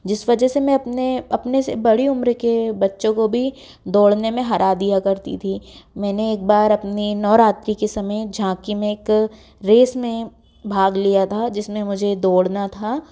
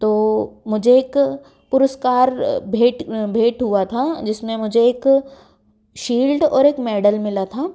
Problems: background sounds at intervals